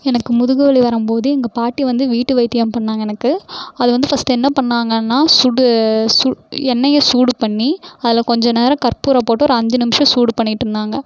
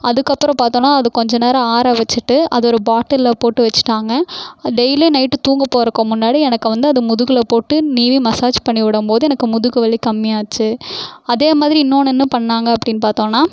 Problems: none marked